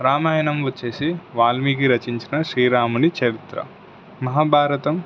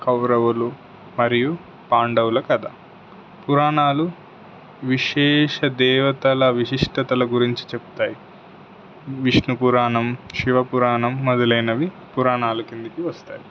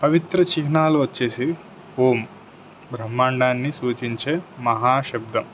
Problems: constant background noise